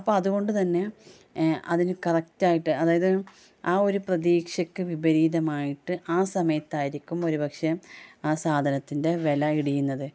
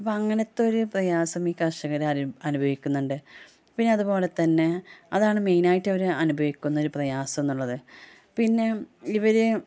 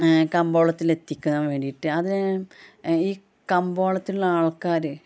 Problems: none marked